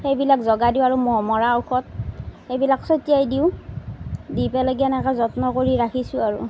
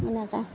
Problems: none marked